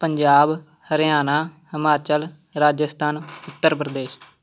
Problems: background sounds at intervals